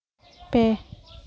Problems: none marked